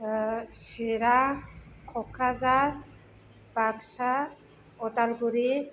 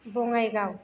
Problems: low volume